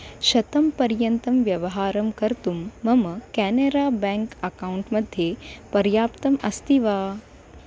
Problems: none marked